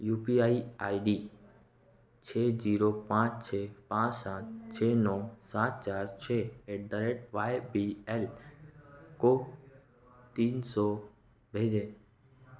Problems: constant background noise